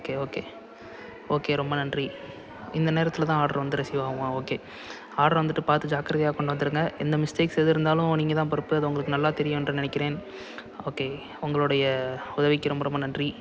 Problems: constant background noise, background conversations at intervals